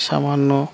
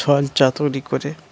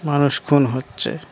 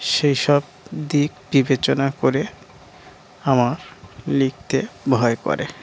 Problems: background sounds at intervals